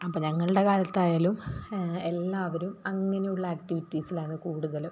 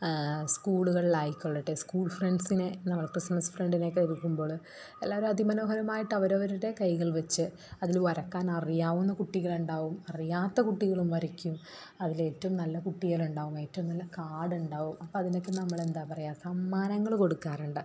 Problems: background sounds at intervals